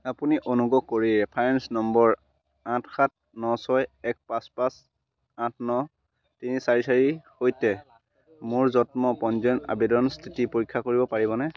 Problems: constant background noise